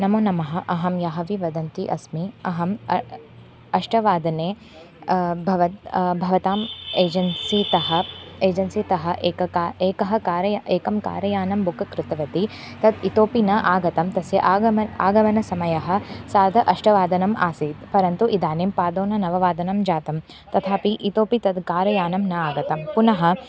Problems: constant background noise, background conversations at intervals